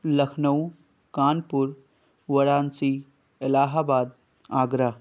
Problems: none marked